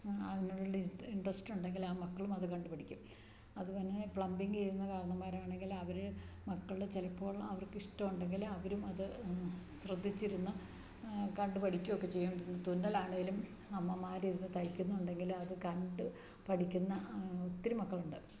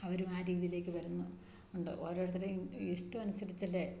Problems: low volume